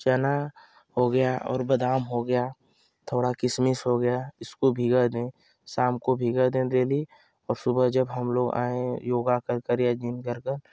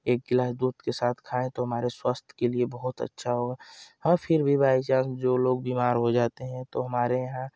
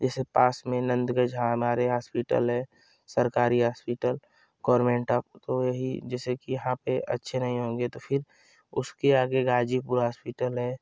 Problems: constant background noise